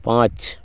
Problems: constant background noise